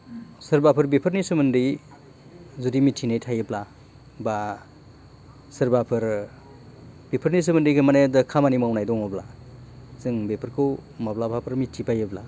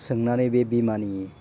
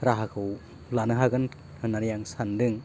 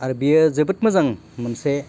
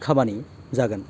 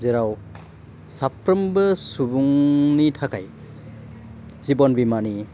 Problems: none marked